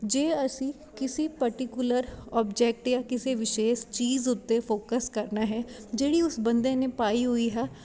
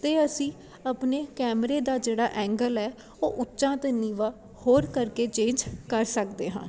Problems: constant background noise